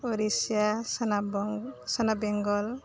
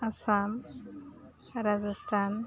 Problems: constant background noise